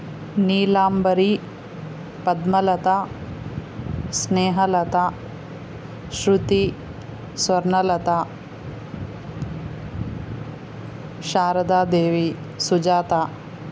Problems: constant background noise